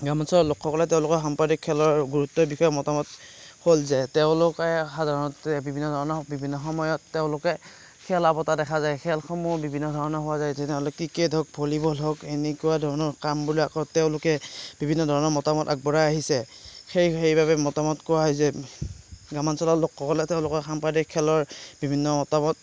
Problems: none marked